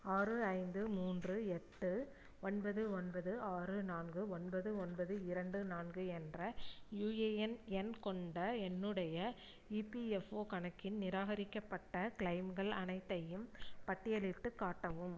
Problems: low volume